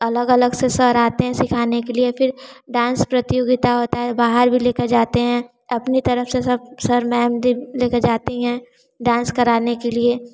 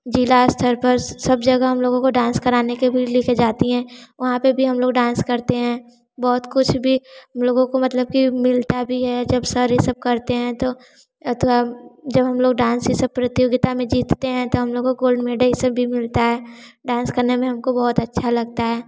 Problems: constant background noise